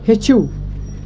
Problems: constant background noise